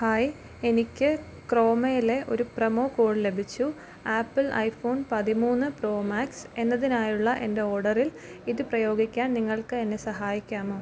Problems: background sounds at intervals